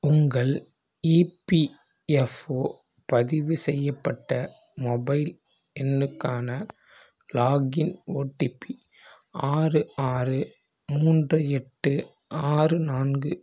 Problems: none marked